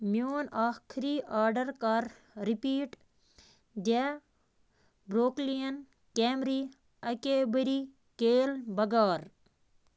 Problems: constant background noise